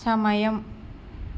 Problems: constant background noise